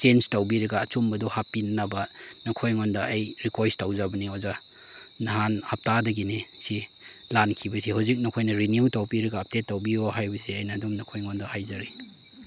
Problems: none marked